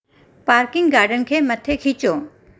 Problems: constant background noise